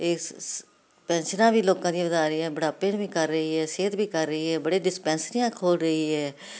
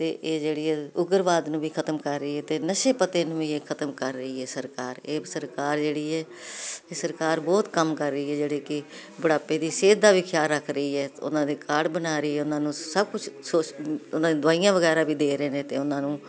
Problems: none marked